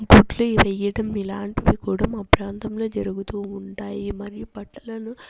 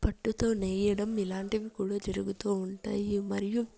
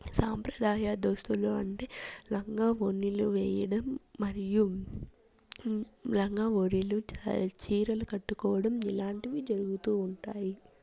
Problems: constant background noise, low volume